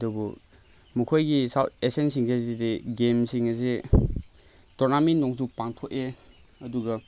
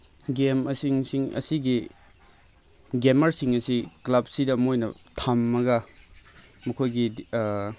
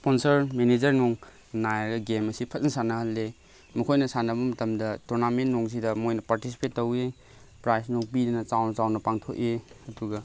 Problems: constant background noise